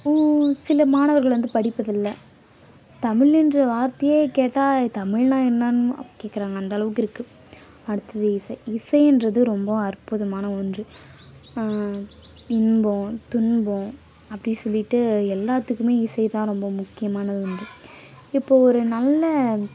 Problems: none marked